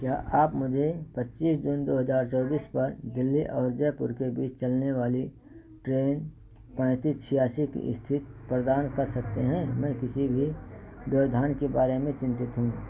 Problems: constant background noise